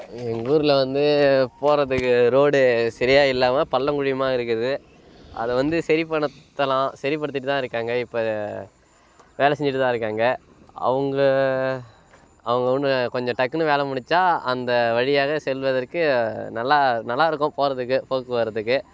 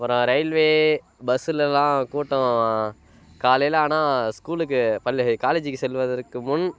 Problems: constant background noise